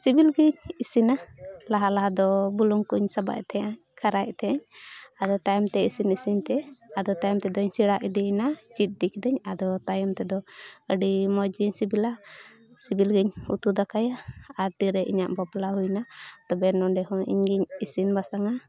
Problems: background conversations at intervals